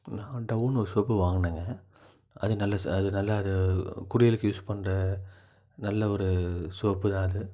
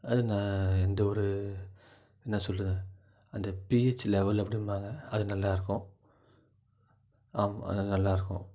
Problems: low volume